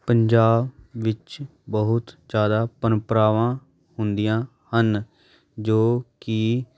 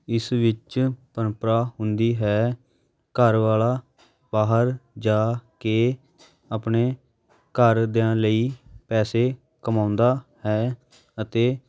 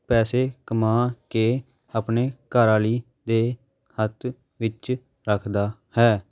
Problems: constant background noise, background conversations at intervals